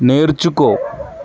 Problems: none marked